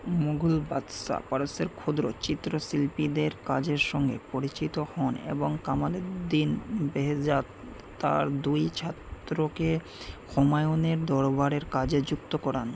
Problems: constant background noise